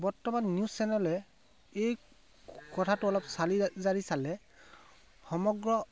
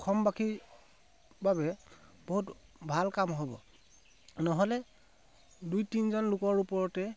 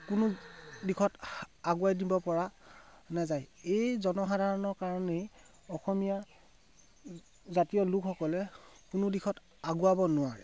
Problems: background sounds at intervals